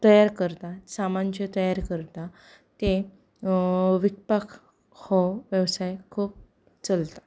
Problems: background conversations at intervals